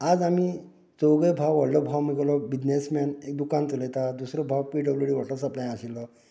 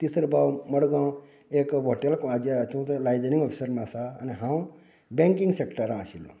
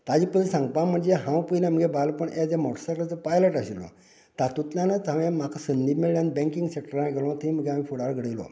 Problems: continuous background conversations